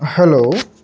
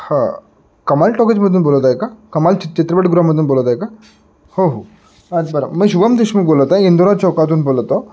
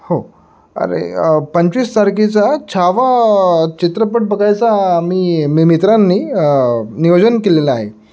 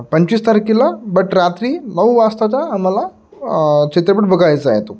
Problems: none marked